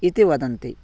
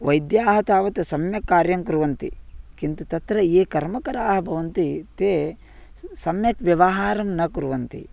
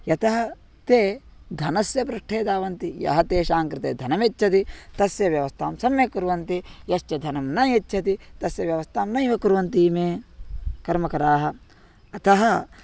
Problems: background sounds at intervals